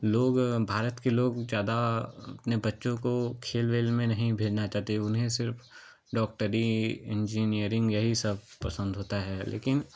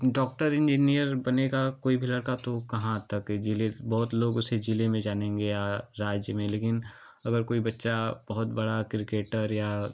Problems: constant background noise, background conversations at intervals